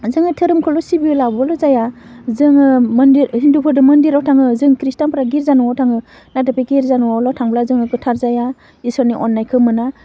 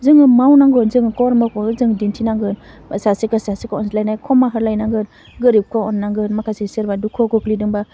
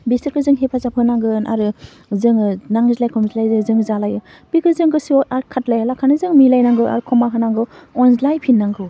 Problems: none marked